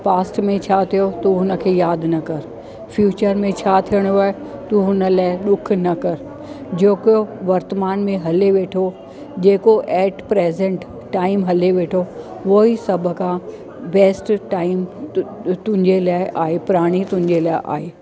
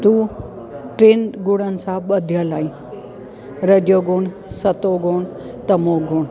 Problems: constant background noise